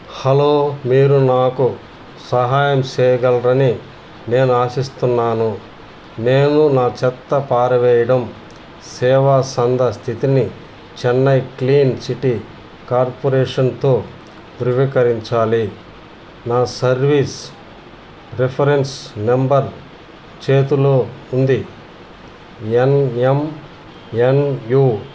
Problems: none marked